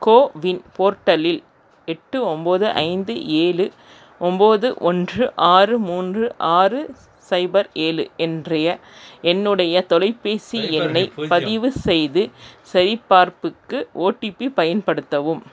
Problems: background conversations at intervals